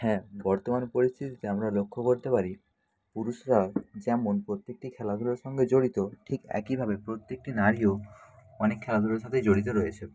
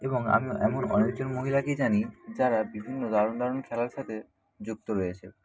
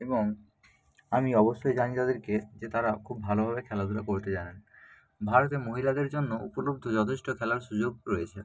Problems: constant background noise